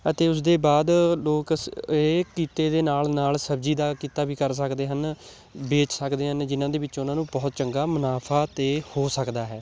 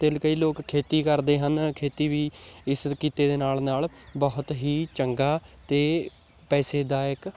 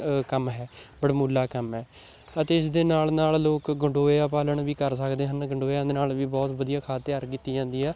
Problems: constant background noise